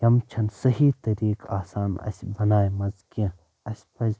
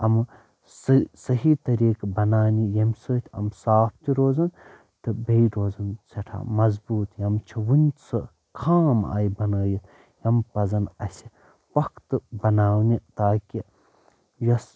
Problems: none marked